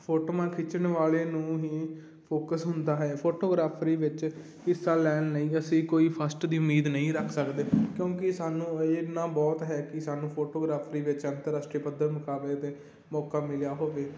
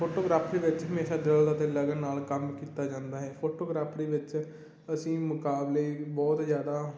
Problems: constant background noise